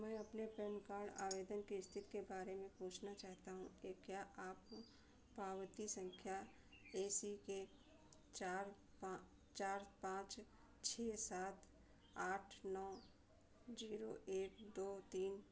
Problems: constant background noise, background conversations at intervals, low volume